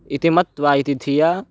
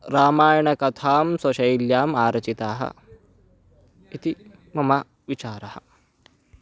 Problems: none marked